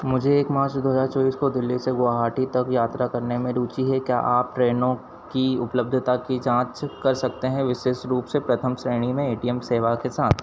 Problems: none marked